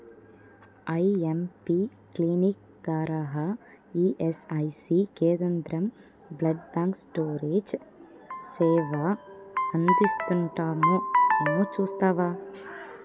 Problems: constant background noise, low volume